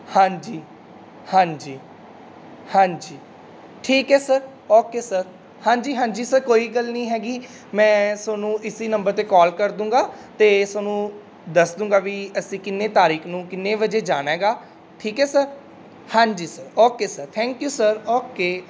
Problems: constant background noise